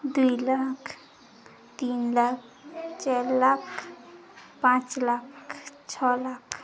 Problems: constant background noise, background conversations at intervals